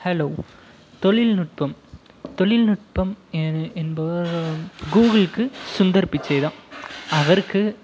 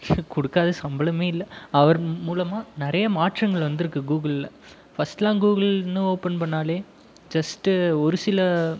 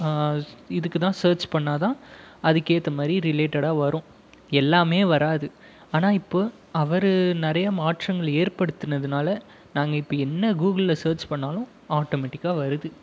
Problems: background sounds at intervals